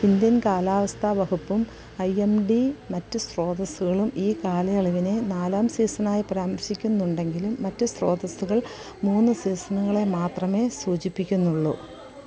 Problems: constant background noise